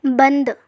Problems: constant background noise